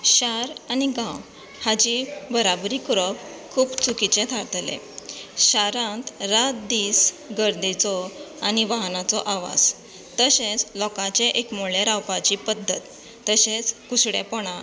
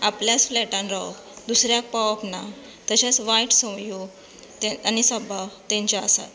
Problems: constant background noise